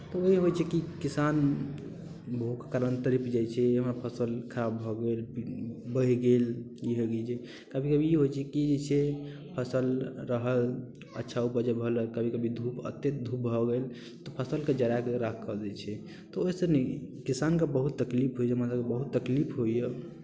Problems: none marked